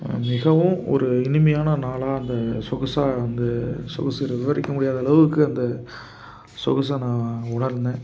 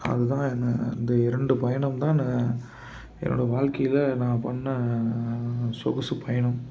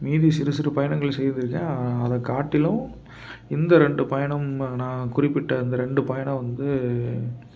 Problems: constant background noise